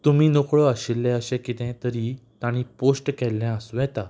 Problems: background sounds at intervals